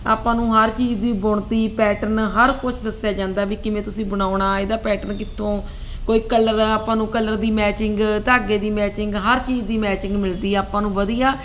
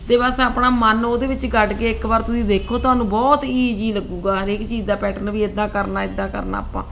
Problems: constant background noise